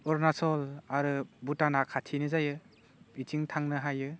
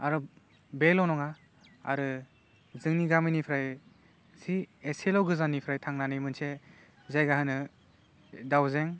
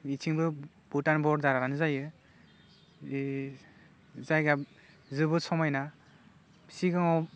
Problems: low volume